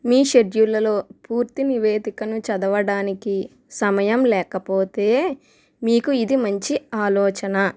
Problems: none marked